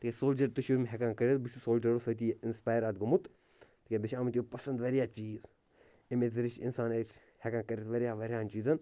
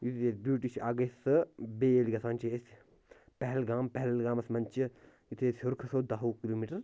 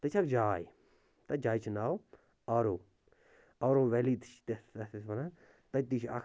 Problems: none marked